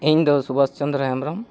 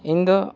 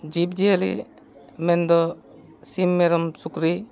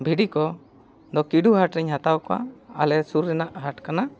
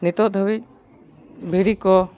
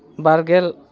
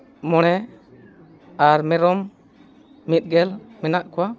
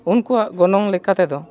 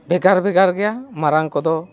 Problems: background sounds at intervals, continuous background conversations